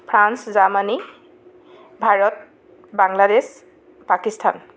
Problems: background sounds at intervals